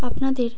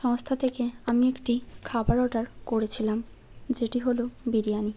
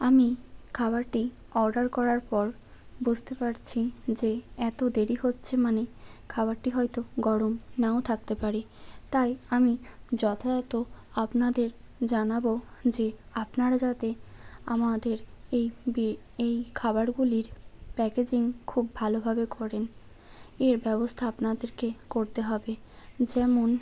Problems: constant background noise